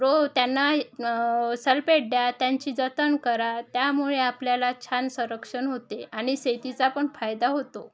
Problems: none marked